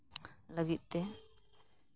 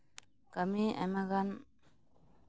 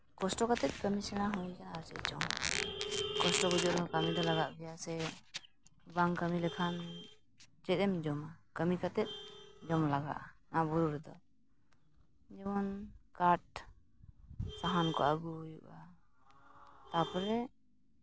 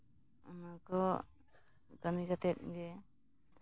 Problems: none marked